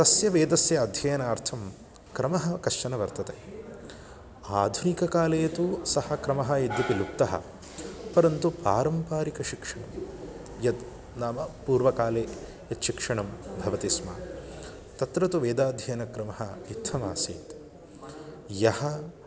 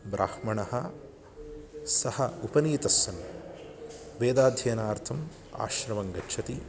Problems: none marked